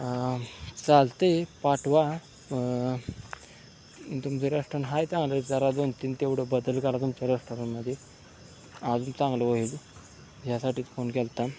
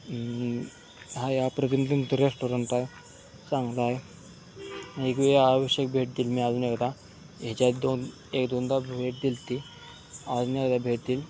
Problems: constant background noise, continuous background conversations